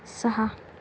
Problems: none marked